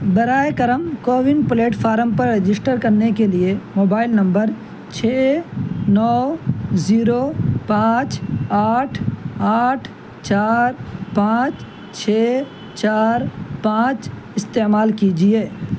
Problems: constant background noise